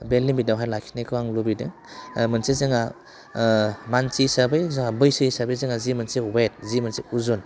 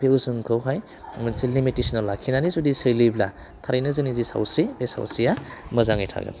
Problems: constant background noise